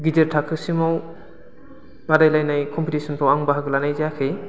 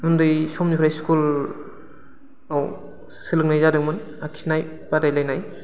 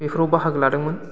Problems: constant background noise